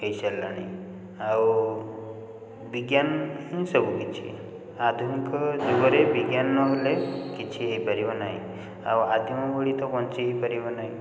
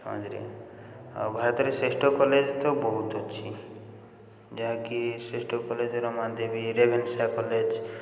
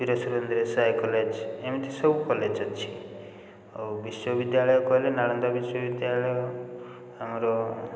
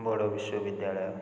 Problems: constant background noise